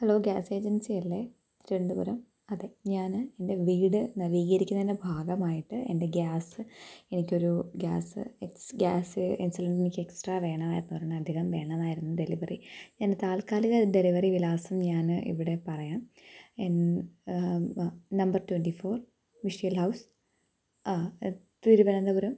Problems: low volume